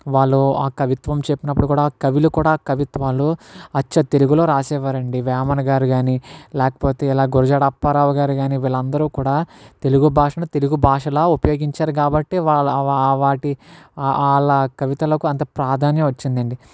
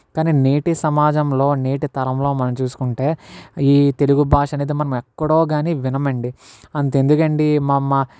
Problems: background sounds at intervals